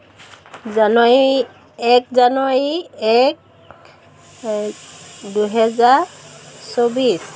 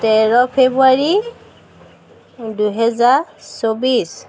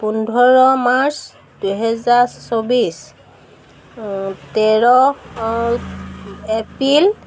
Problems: none marked